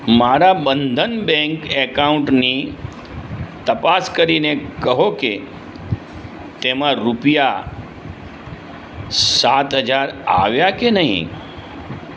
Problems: constant background noise